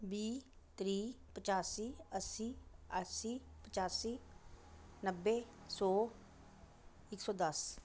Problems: background sounds at intervals